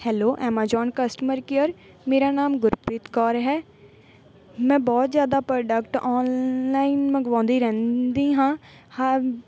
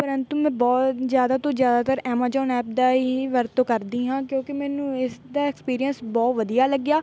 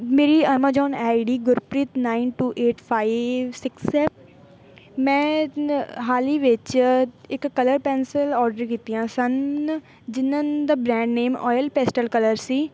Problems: none marked